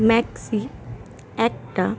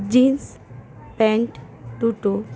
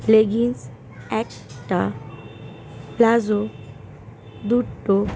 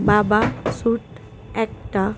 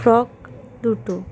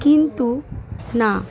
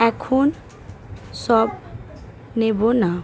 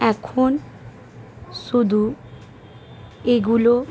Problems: constant background noise